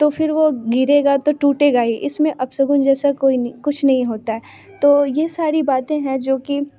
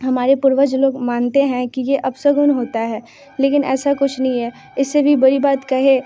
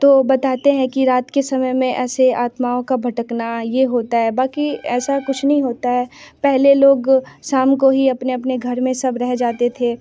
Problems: constant background noise